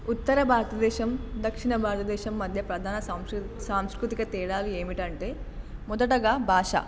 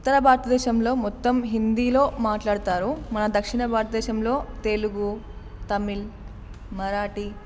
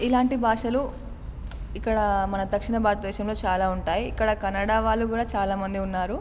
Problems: none marked